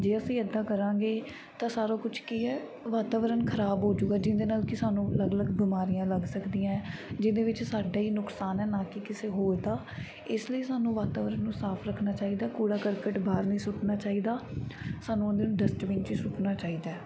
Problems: background sounds at intervals